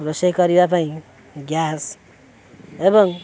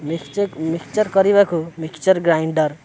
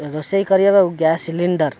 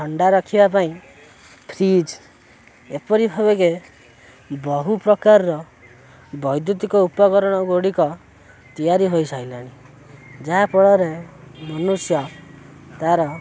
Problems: constant background noise